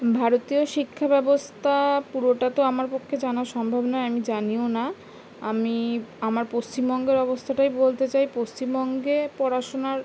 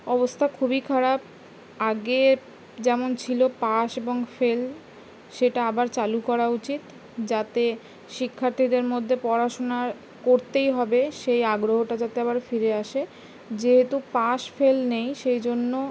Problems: none marked